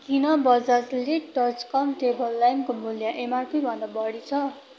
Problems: none marked